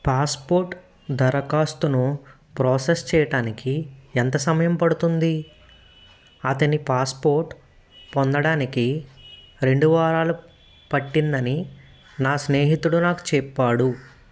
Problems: background sounds at intervals